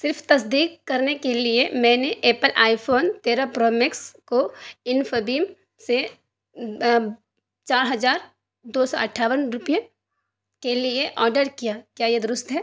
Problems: none marked